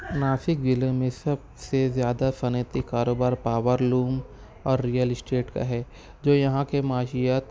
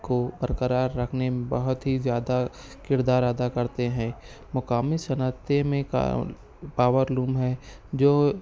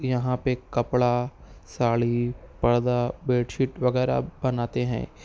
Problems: none marked